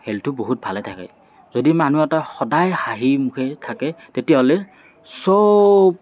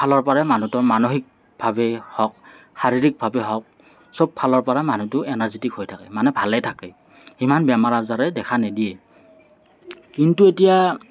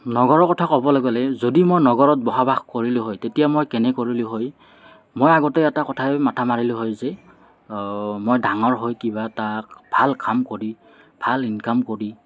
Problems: constant background noise, background conversations at intervals